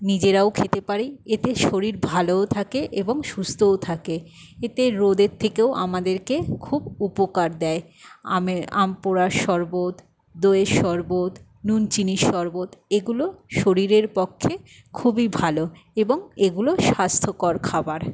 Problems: none marked